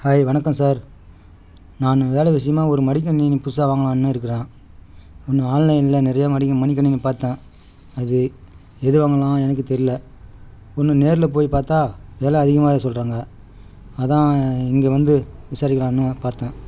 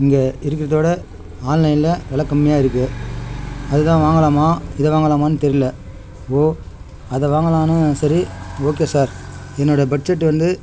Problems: background sounds at intervals